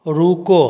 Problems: none marked